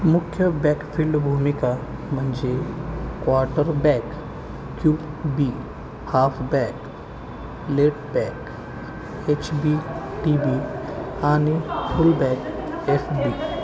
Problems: constant background noise, continuous background conversations